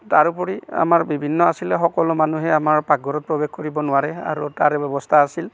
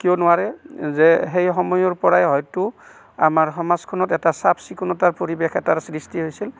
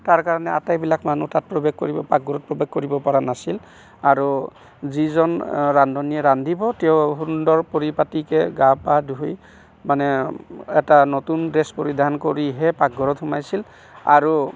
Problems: none marked